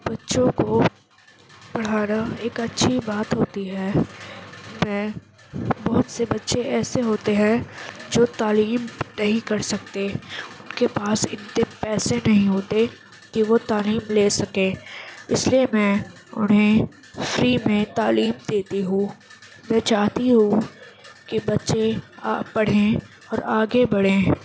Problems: constant background noise